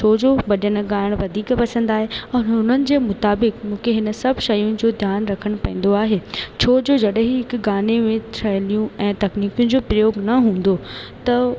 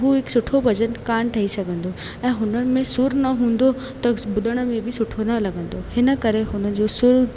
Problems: constant background noise, echo